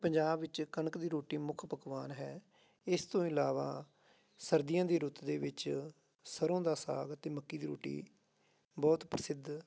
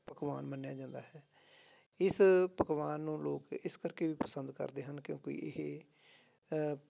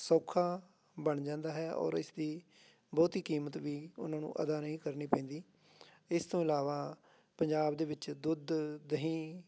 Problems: background sounds at intervals